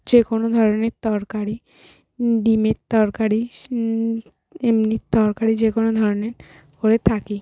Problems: none marked